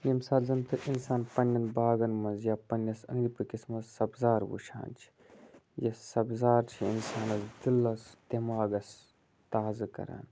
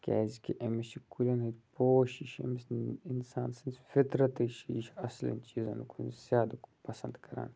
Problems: constant background noise